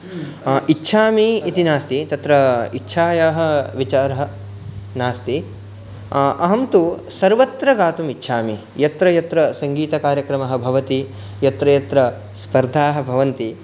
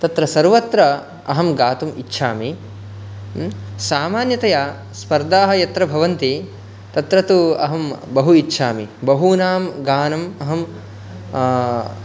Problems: background sounds at intervals